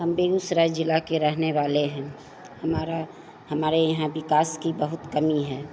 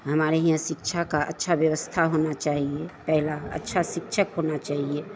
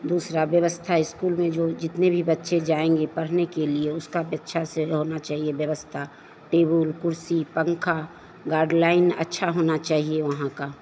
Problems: none marked